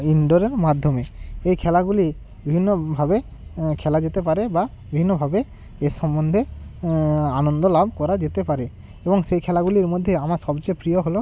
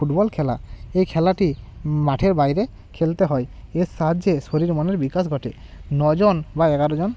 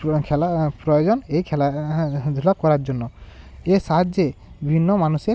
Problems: constant background noise